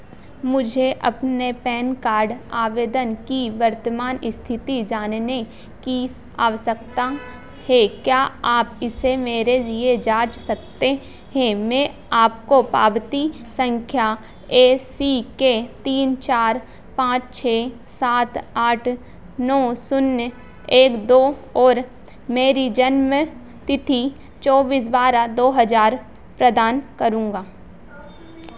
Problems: none marked